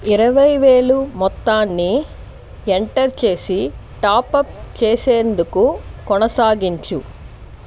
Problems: constant background noise